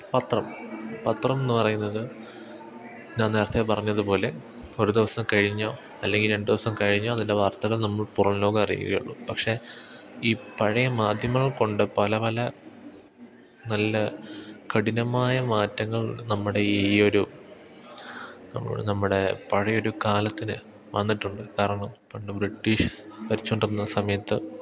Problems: background sounds at intervals, background conversations at intervals